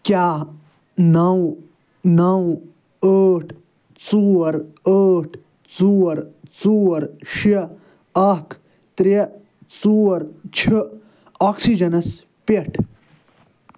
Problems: none marked